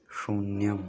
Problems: none marked